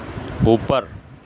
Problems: constant background noise